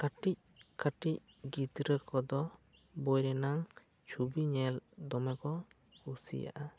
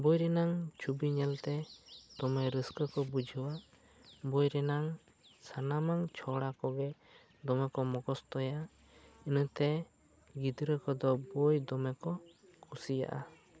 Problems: none marked